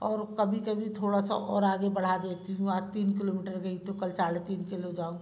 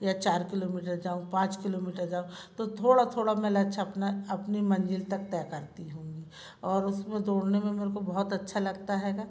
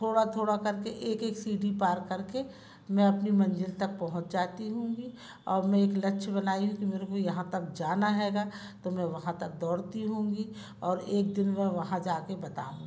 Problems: constant background noise, background conversations at intervals